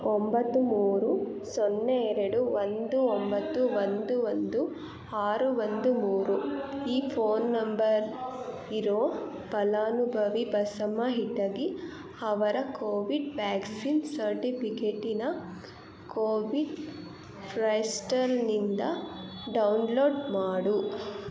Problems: background sounds at intervals